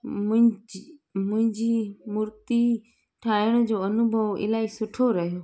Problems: constant background noise